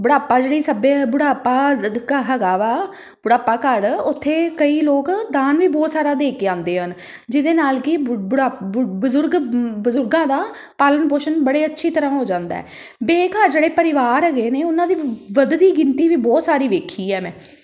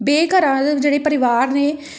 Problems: background sounds at intervals